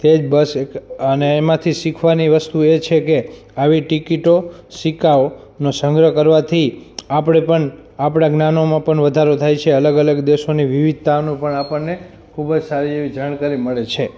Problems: background sounds at intervals